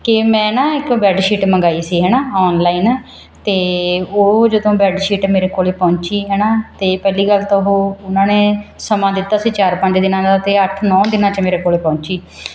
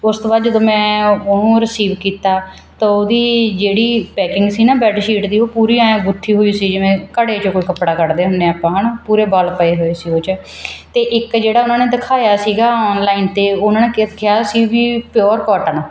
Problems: none marked